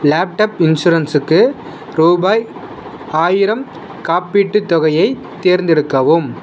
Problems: constant background noise